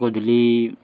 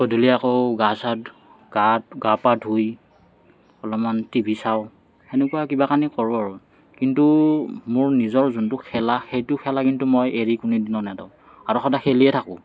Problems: none marked